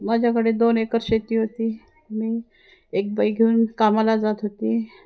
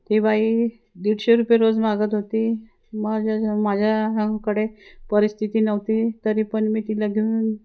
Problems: constant background noise, background conversations at intervals